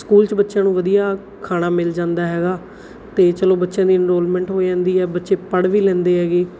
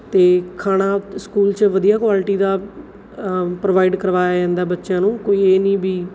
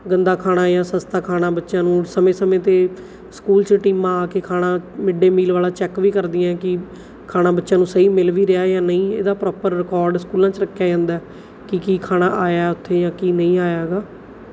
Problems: background sounds at intervals